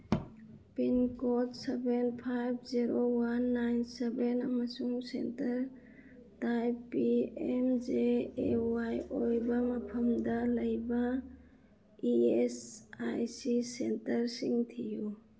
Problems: none marked